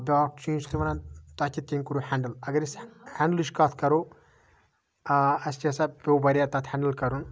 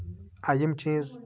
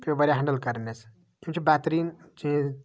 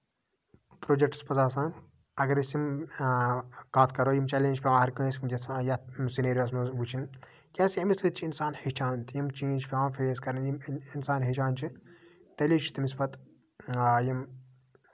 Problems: background sounds at intervals, background conversations at intervals